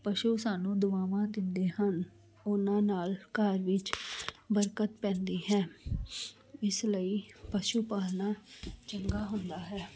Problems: none marked